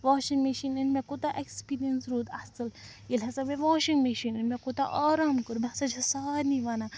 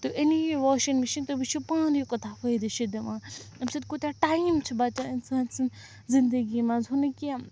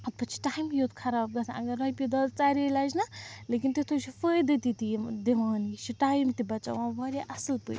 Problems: background sounds at intervals, background conversations at intervals